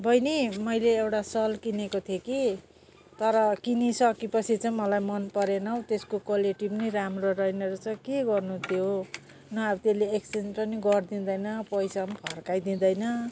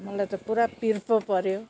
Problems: none marked